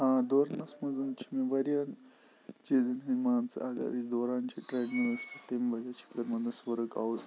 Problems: constant background noise, low volume